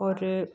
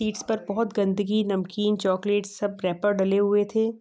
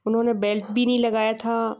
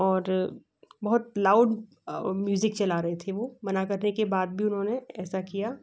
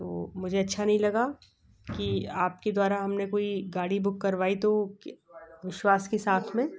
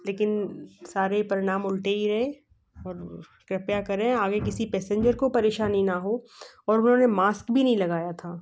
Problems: background sounds at intervals